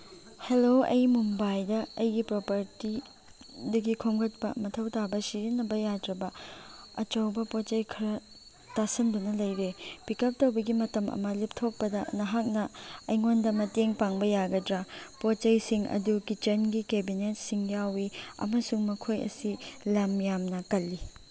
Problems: background sounds at intervals